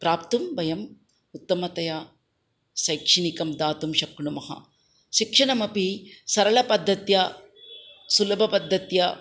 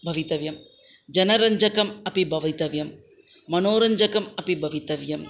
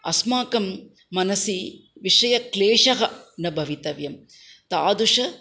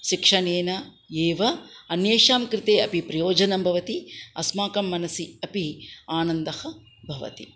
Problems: none marked